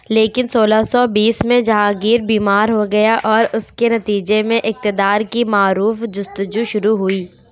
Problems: none marked